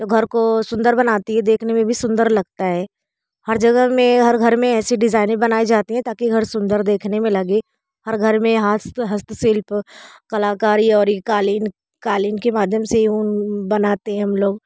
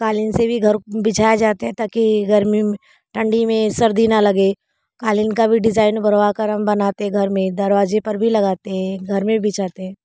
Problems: constant background noise